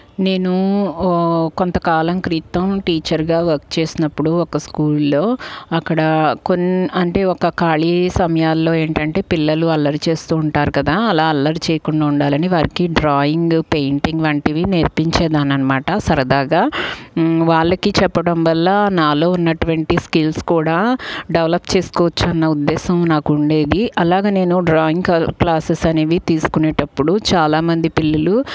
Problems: none marked